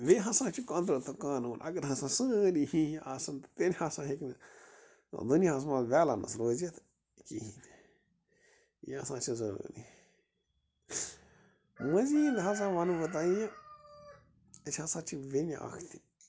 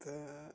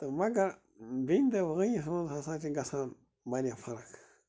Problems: constant background noise